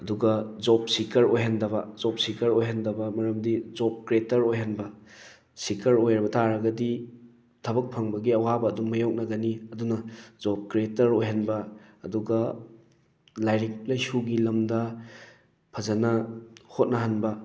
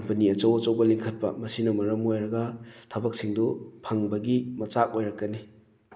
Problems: none marked